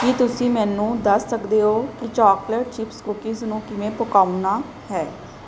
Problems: background sounds at intervals